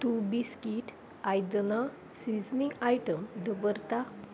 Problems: background sounds at intervals